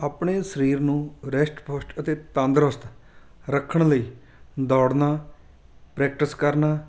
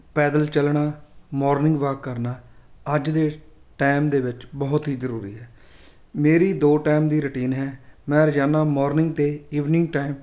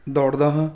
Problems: background sounds at intervals